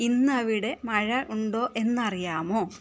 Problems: background sounds at intervals, low volume